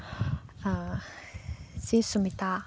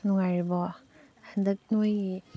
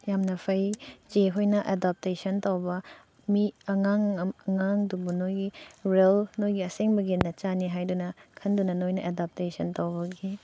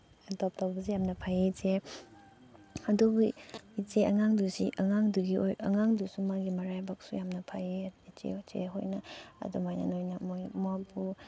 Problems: background sounds at intervals, background conversations at intervals